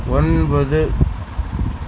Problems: constant background noise